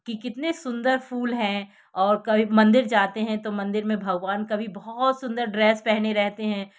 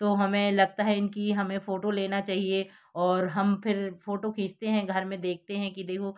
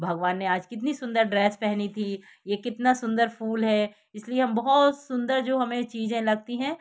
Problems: background sounds at intervals